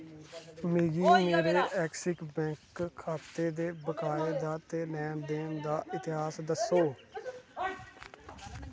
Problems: constant background noise